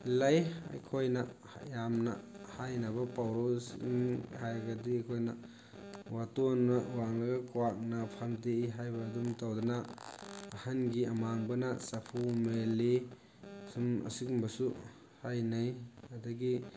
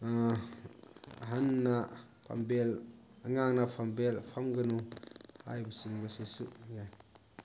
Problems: constant background noise